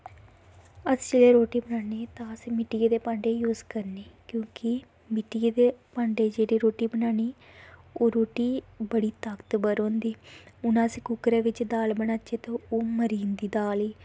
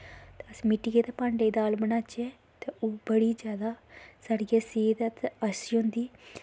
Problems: background sounds at intervals